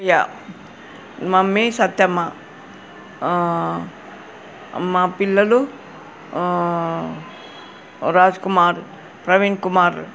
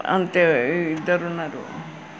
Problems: none marked